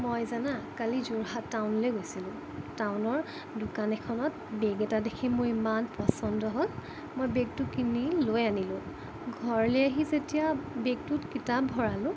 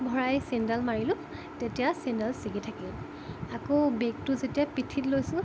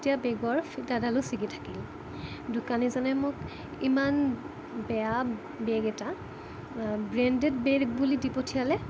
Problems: constant background noise, low volume